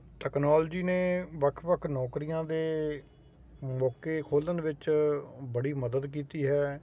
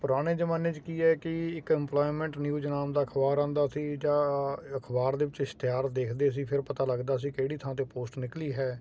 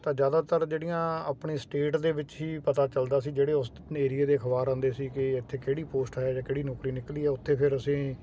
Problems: constant background noise